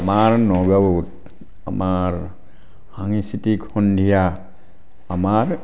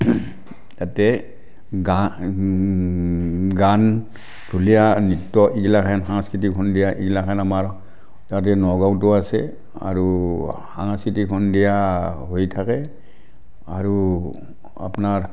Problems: background sounds at intervals, background conversations at intervals